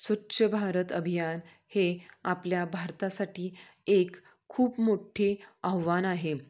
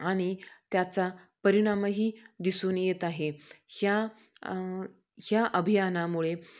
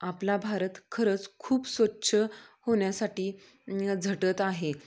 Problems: none marked